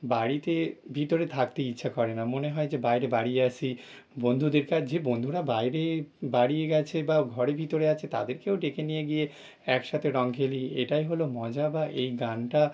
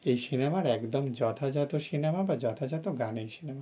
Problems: background sounds at intervals